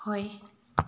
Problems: low volume